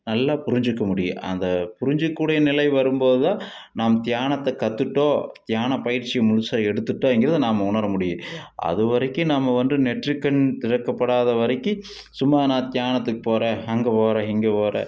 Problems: none marked